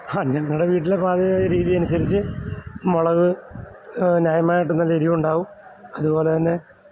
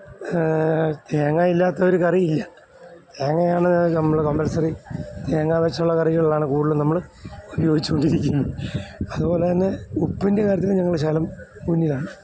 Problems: none marked